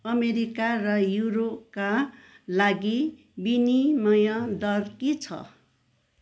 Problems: none marked